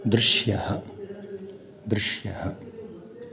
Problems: background sounds at intervals